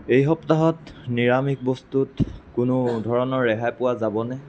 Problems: none marked